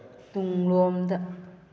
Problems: low volume